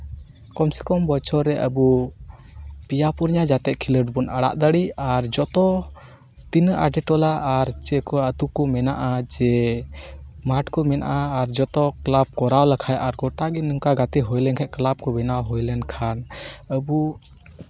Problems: none marked